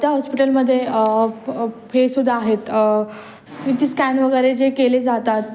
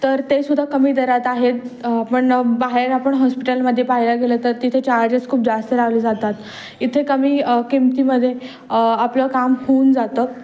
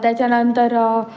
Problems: constant background noise, background conversations at intervals